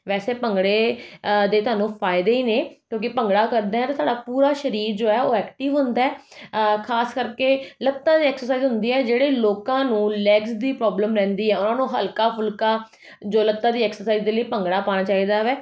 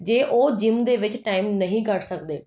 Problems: none marked